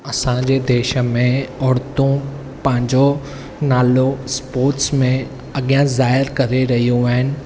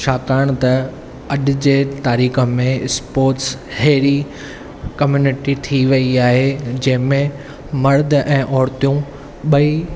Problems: none marked